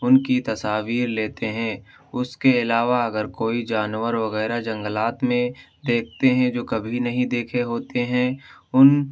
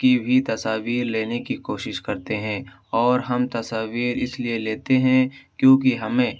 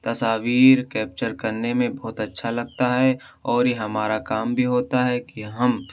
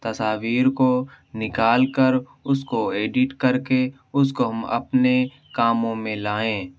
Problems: none marked